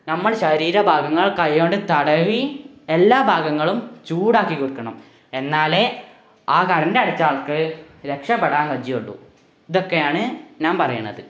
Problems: background sounds at intervals